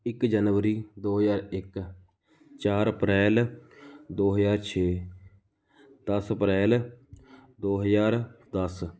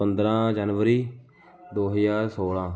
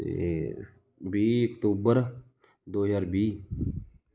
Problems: continuous background conversations